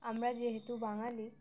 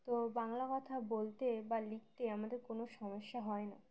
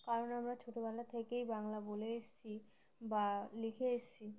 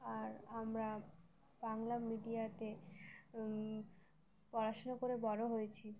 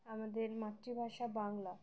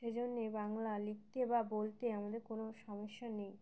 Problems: none marked